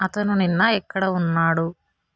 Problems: constant background noise